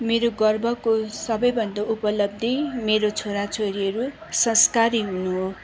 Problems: constant background noise